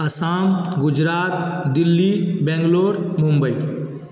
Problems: constant background noise